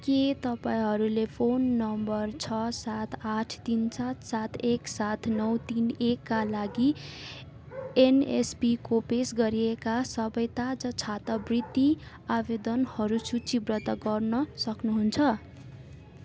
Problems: background sounds at intervals